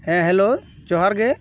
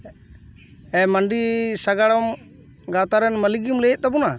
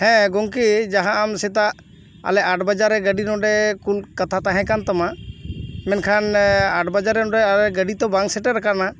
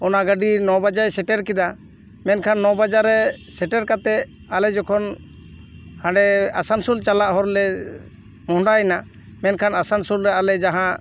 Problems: none marked